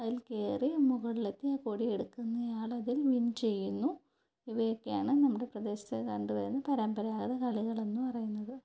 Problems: low volume